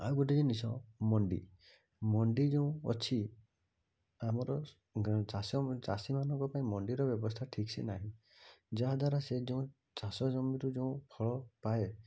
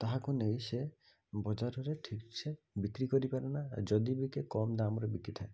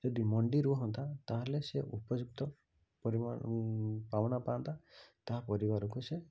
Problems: low volume